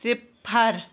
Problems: none marked